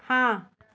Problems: background conversations at intervals